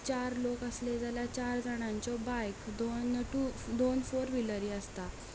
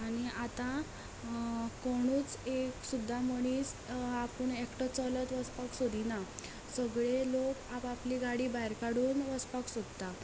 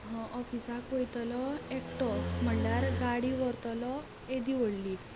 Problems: constant background noise, continuous background conversations